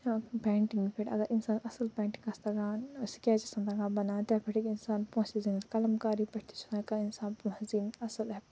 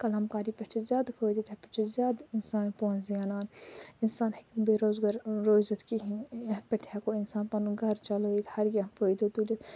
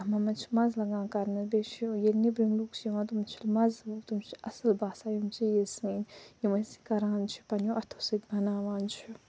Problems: low volume